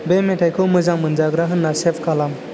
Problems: constant background noise